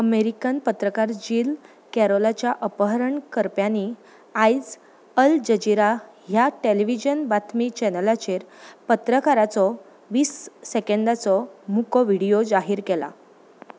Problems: background sounds at intervals